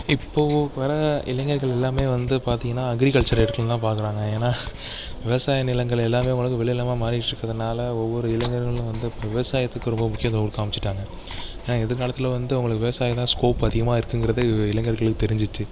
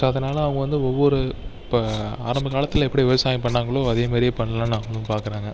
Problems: background sounds at intervals